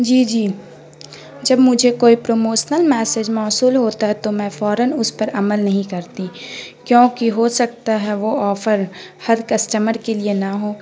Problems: constant background noise